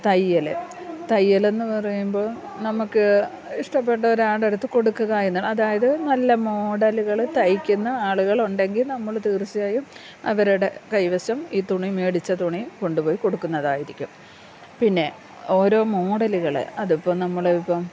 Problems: low volume